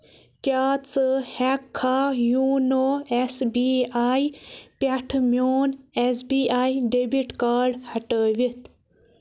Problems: none marked